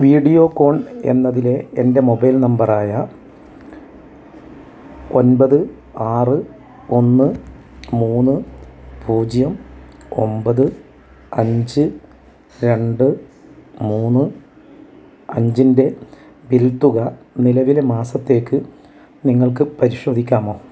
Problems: low volume